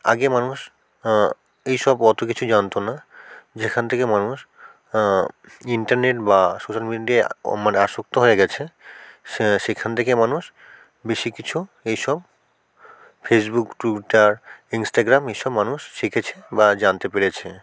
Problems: constant background noise, background conversations at intervals